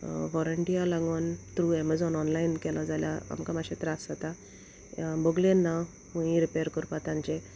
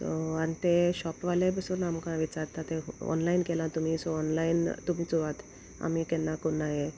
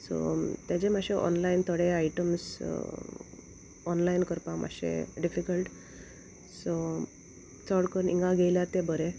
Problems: constant background noise